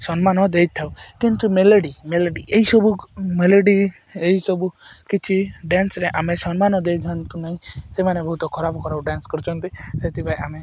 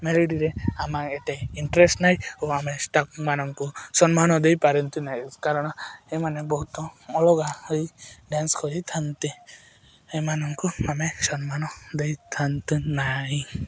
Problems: none marked